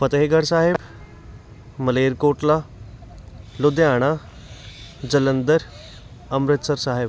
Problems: constant background noise, background conversations at intervals